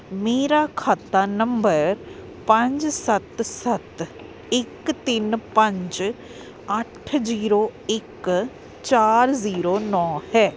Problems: constant background noise